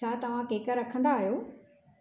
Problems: none marked